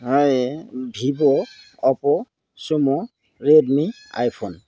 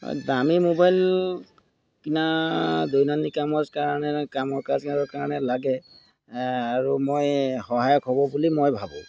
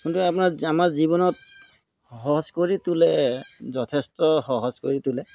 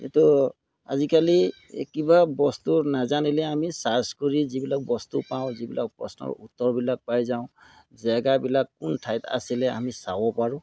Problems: background sounds at intervals